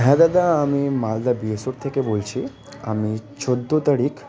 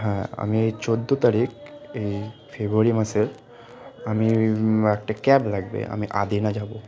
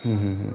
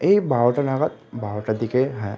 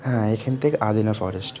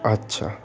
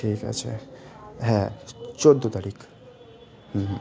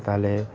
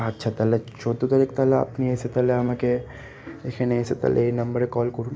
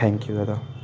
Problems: constant background noise